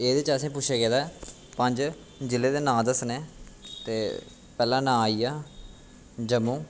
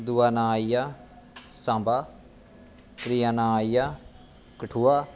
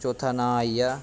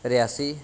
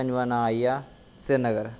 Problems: constant background noise